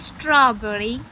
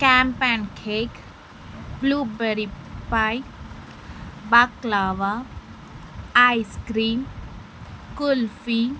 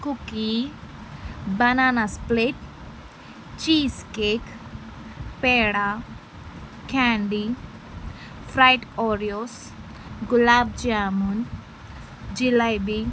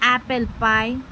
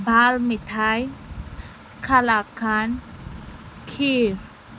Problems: constant background noise